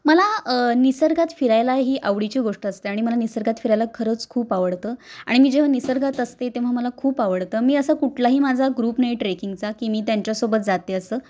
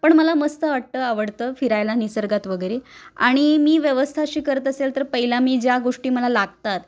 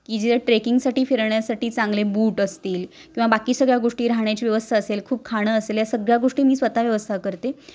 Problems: none marked